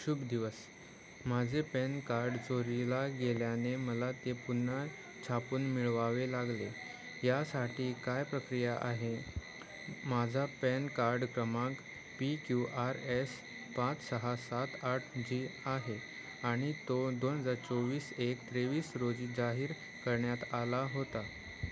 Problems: none marked